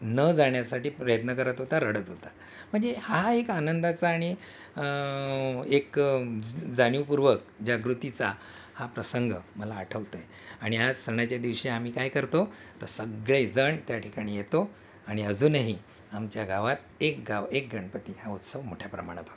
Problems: constant background noise